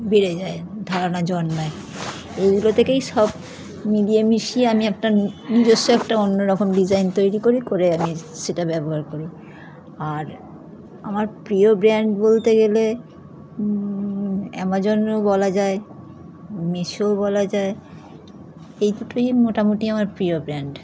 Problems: constant background noise